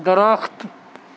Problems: constant background noise